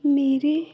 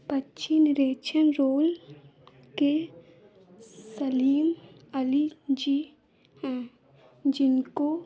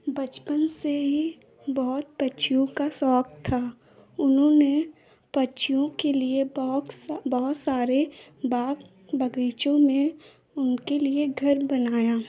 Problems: none marked